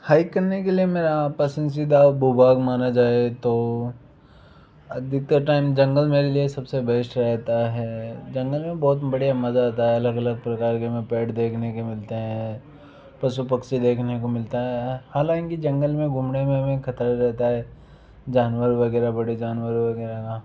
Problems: background sounds at intervals